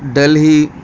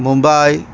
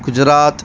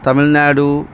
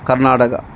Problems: constant background noise